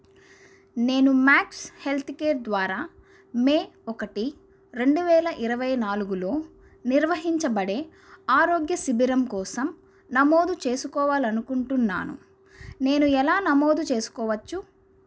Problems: none marked